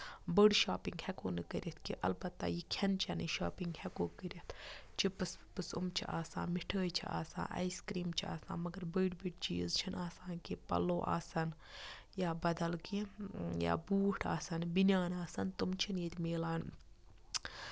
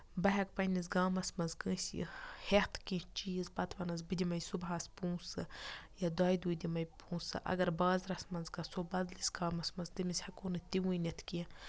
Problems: none marked